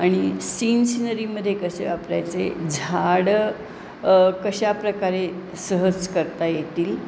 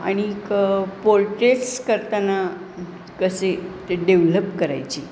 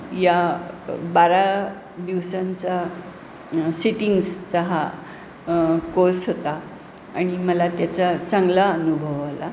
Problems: none marked